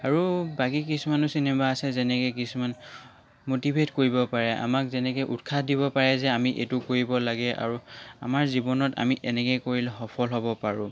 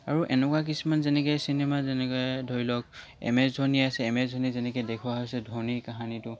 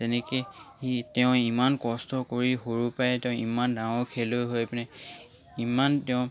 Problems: background sounds at intervals